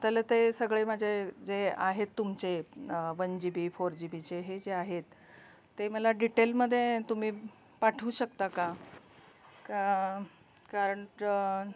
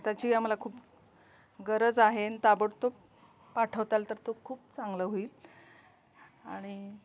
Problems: constant background noise, continuous background conversations